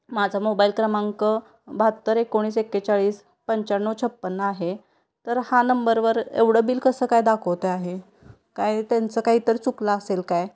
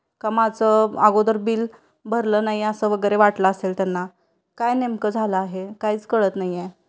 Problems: constant background noise, background conversations at intervals